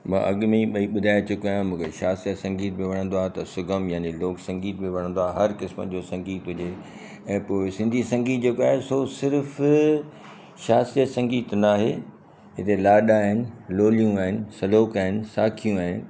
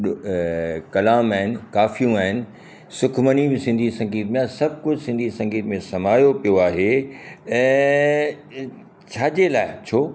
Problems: constant background noise